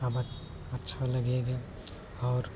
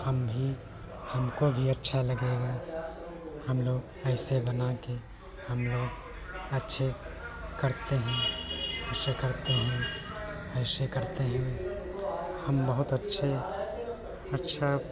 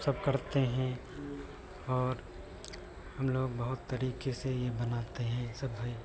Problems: none marked